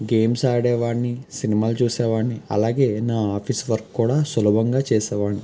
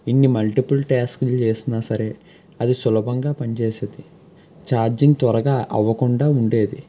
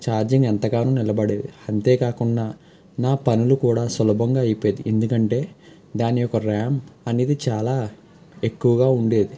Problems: background sounds at intervals